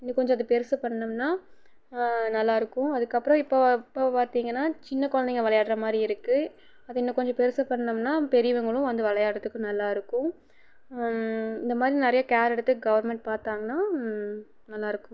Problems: low volume